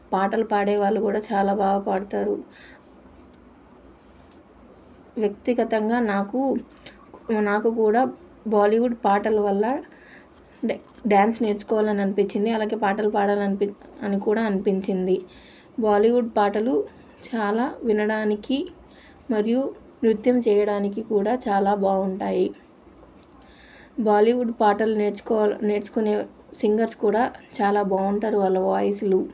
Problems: none marked